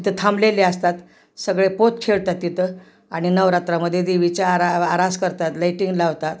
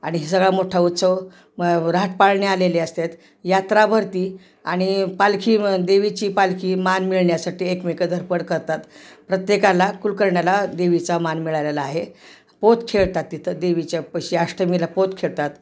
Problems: none marked